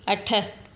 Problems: constant background noise, echo